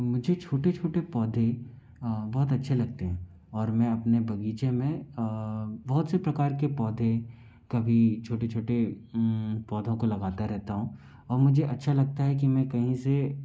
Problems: low volume